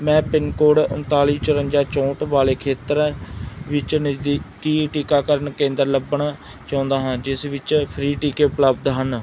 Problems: none marked